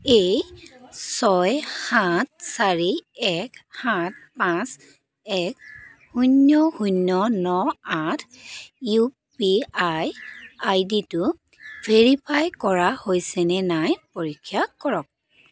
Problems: none marked